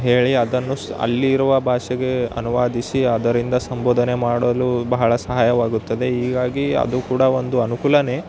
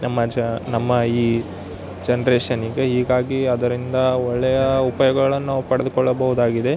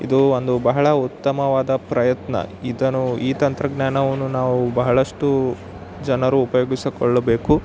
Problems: none marked